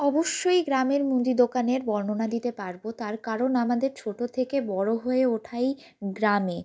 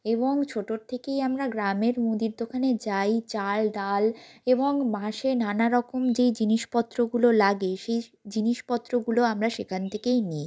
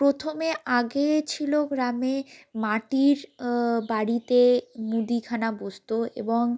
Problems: none marked